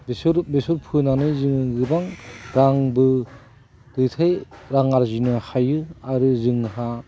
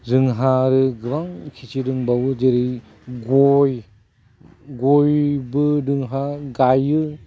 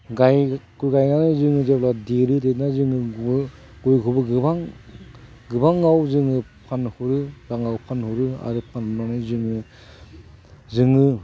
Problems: background sounds at intervals